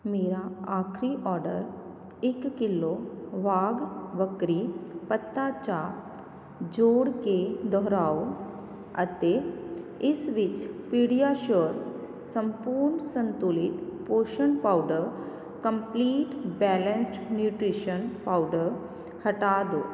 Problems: none marked